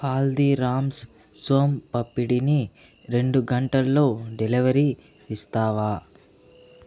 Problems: none marked